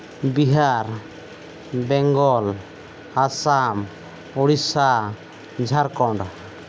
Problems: none marked